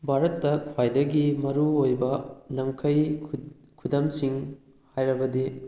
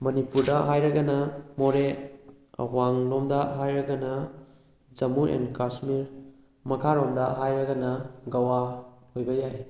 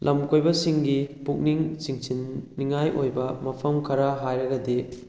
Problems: background conversations at intervals